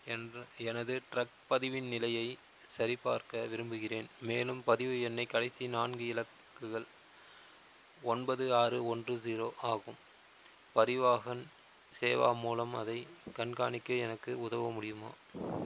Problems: constant background noise